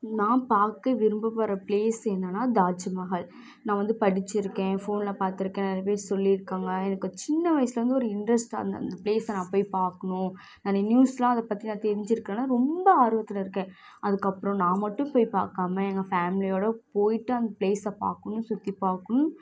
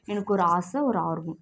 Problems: background sounds at intervals